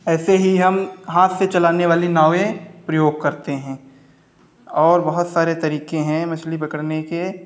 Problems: none marked